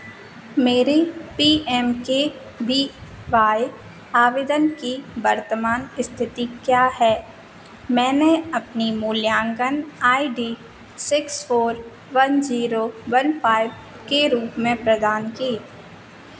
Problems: none marked